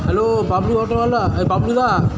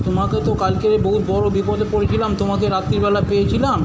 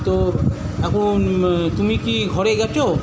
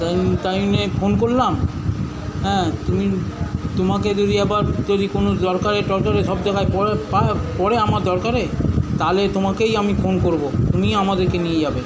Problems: constant background noise, continuous background conversations